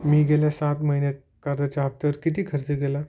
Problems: none marked